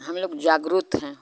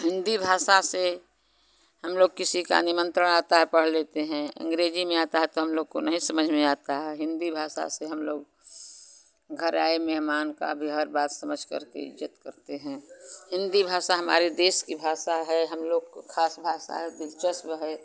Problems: constant background noise